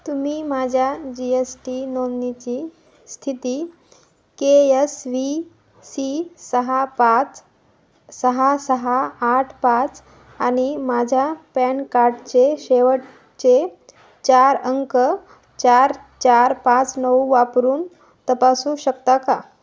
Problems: constant background noise, echo